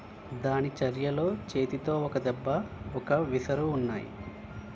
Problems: constant background noise